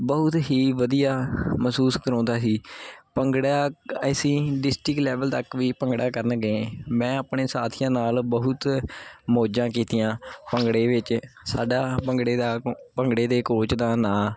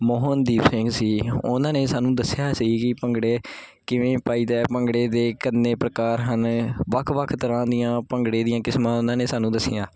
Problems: constant background noise